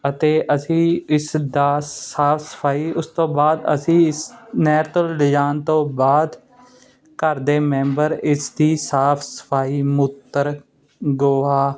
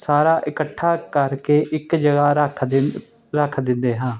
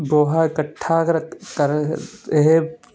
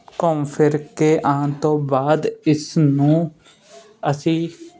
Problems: none marked